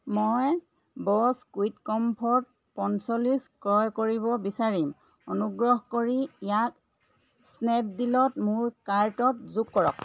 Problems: none marked